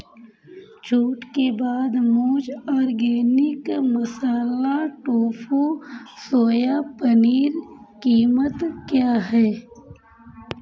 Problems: constant background noise, background conversations at intervals